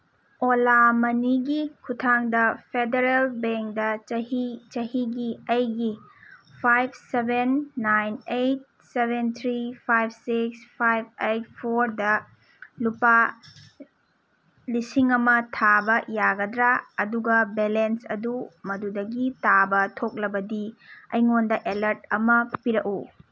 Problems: none marked